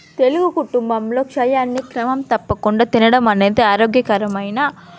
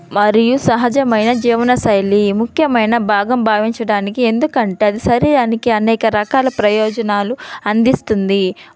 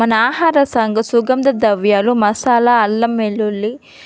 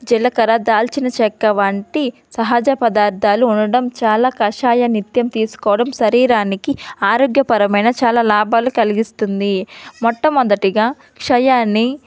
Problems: background sounds at intervals, background conversations at intervals